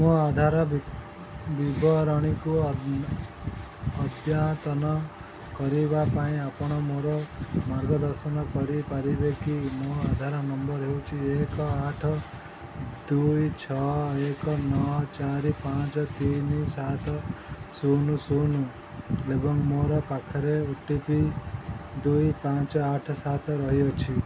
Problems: none marked